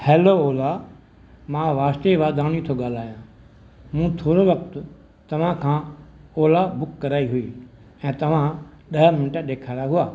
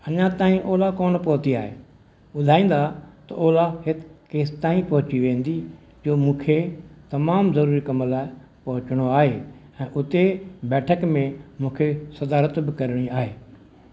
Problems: none marked